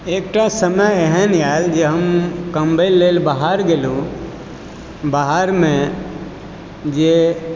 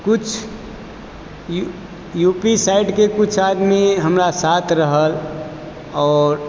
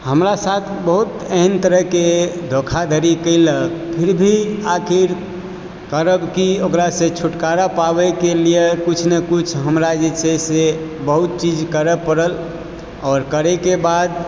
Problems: background sounds at intervals